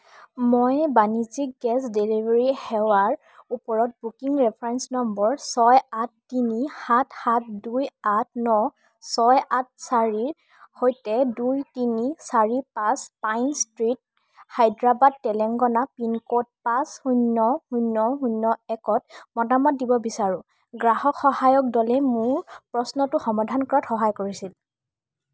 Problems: none marked